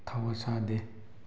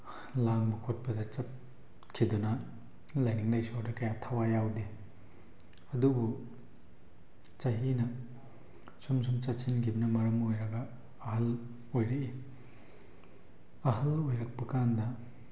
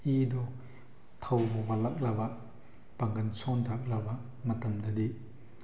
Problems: background sounds at intervals